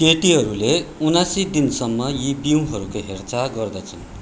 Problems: continuous background conversations